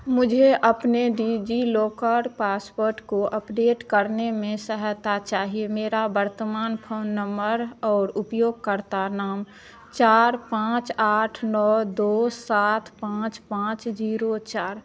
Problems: constant background noise